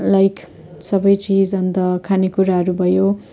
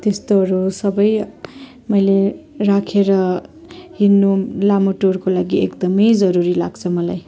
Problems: continuous background conversations